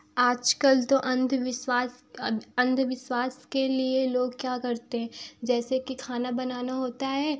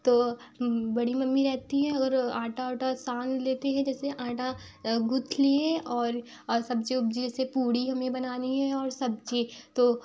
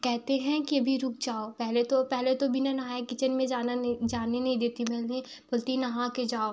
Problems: background sounds at intervals